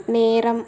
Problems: none marked